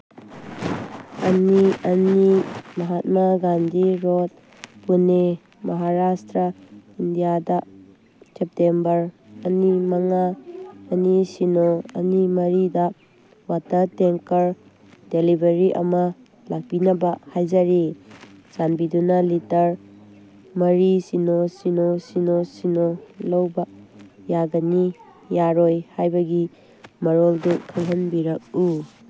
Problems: background conversations at intervals